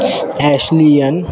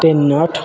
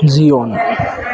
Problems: none marked